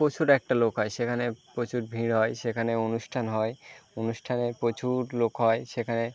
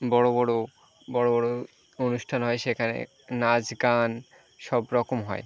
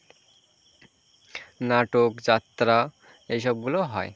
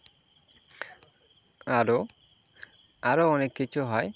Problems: constant background noise